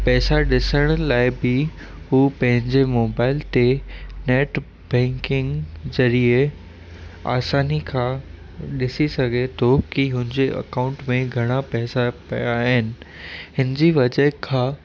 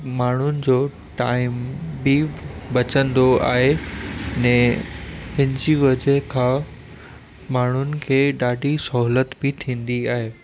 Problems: constant background noise